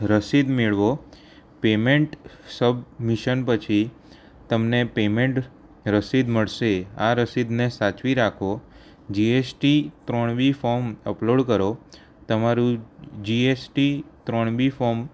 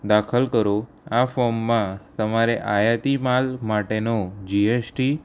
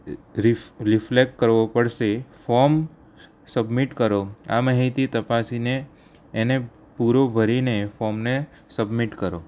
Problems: none marked